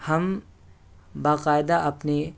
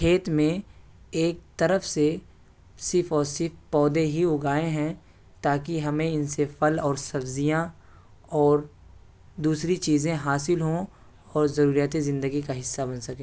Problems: constant background noise